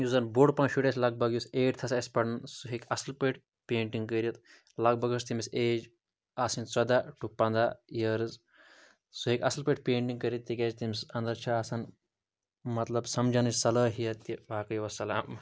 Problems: none marked